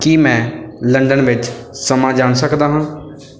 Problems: none marked